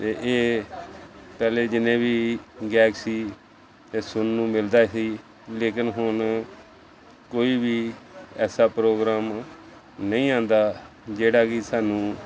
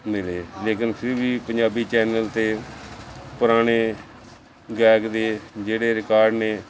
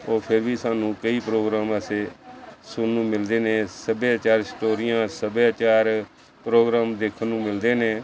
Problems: constant background noise